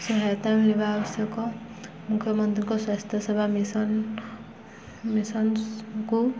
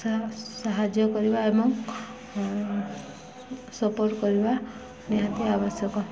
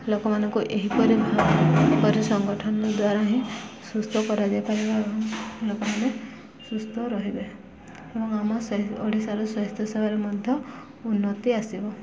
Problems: constant background noise, continuous background conversations